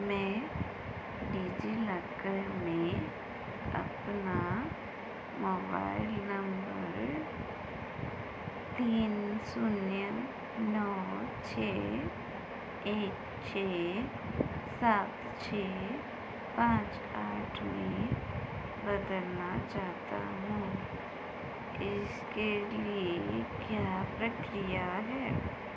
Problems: constant background noise